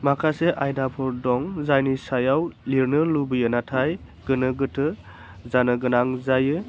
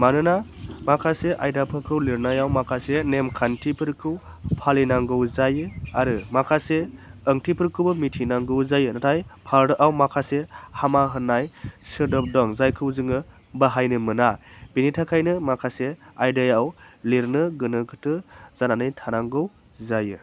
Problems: none marked